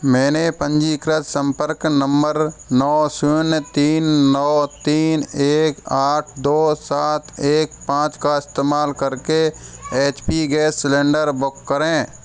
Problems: constant background noise